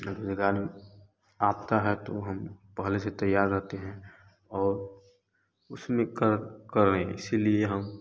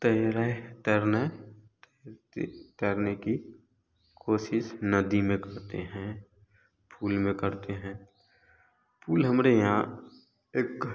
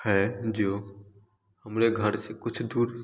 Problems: constant background noise